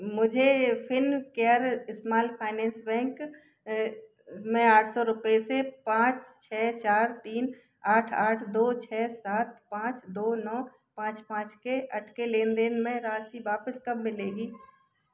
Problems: none marked